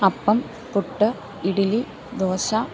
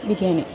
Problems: low volume